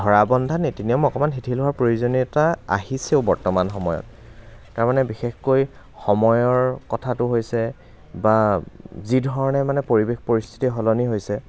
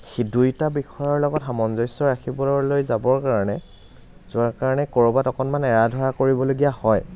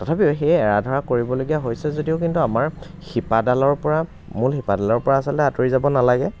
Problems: none marked